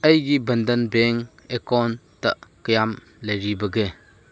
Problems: none marked